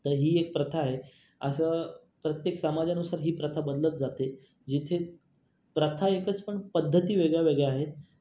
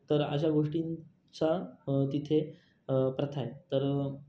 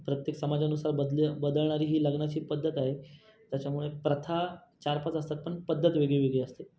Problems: constant background noise, background conversations at intervals